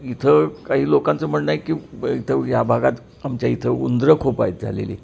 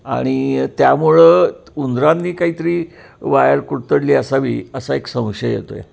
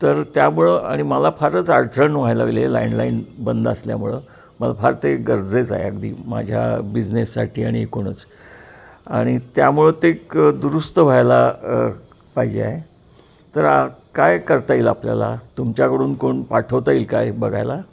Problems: constant background noise